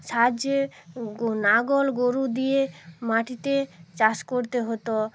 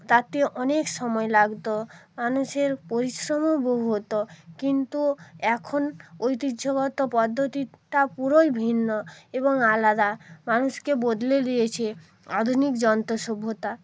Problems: constant background noise